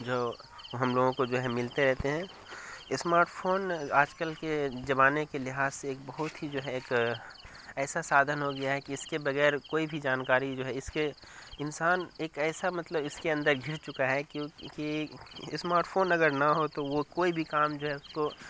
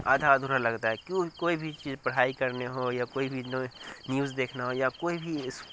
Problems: constant background noise